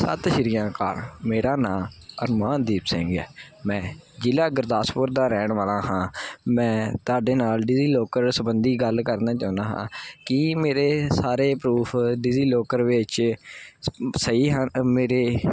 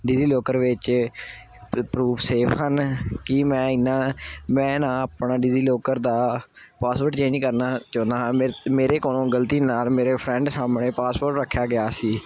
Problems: none marked